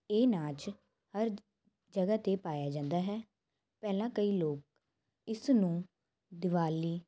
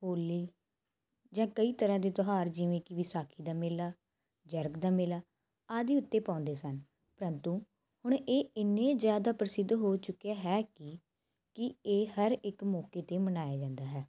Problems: constant background noise